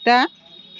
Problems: background sounds at intervals